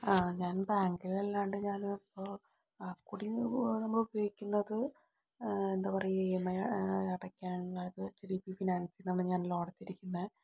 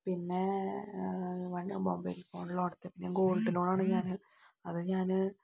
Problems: low volume